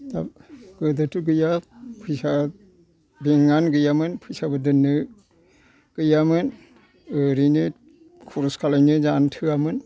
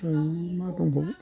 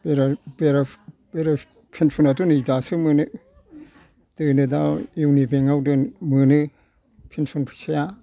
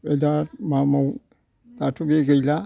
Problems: background sounds at intervals